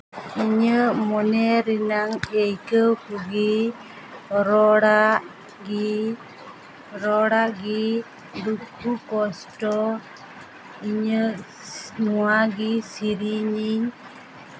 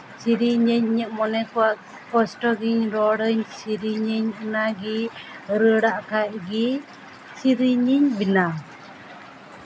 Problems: none marked